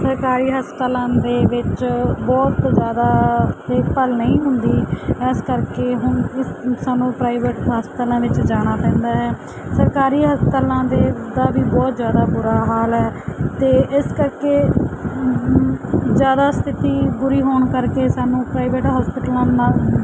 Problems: none marked